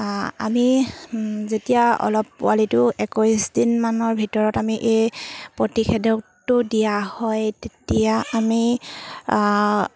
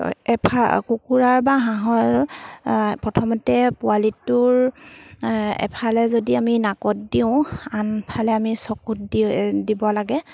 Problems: background sounds at intervals